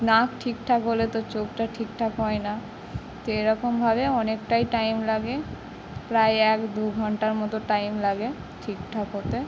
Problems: none marked